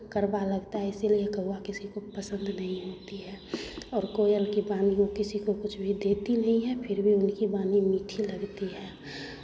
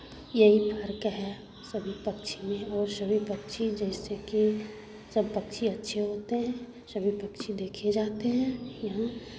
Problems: none marked